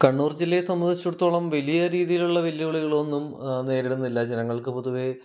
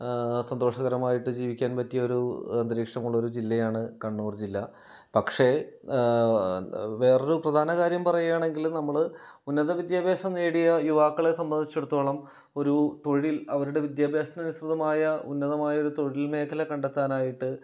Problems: none marked